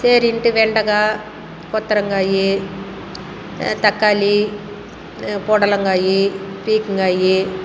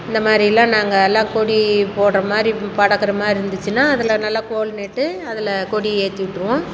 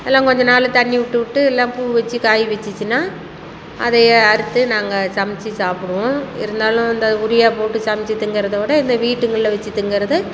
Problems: constant background noise